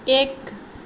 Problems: background sounds at intervals